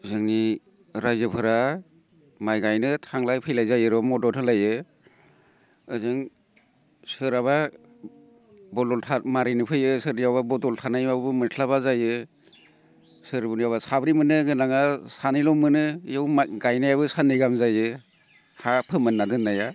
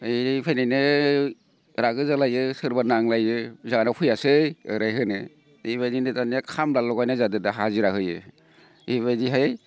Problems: none marked